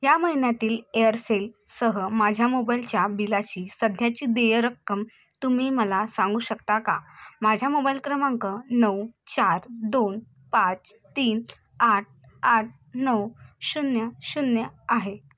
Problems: constant background noise